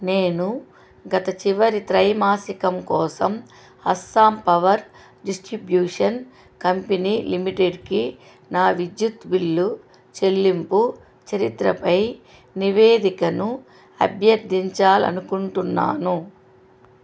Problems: constant background noise